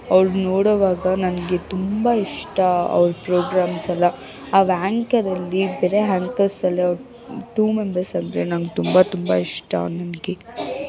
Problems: background sounds at intervals, background conversations at intervals